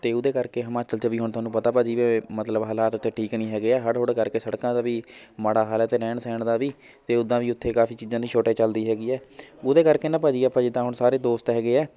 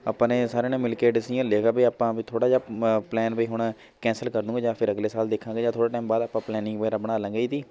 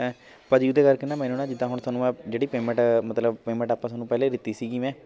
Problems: none marked